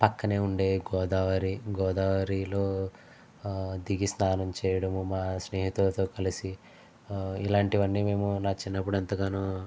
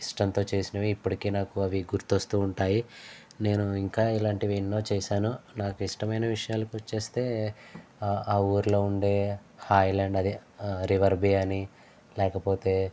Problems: low volume